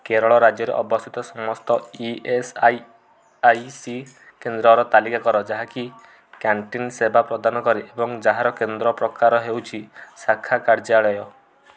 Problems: low volume